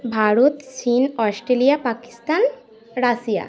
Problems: none marked